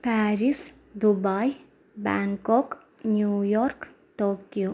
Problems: low volume